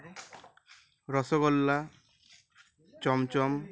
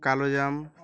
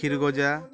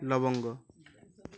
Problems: continuous background conversations